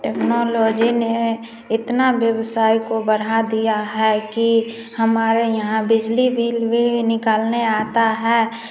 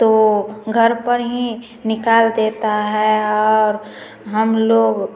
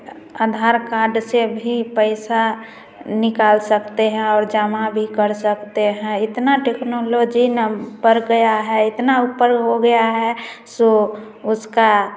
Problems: constant background noise, continuous background conversations, echo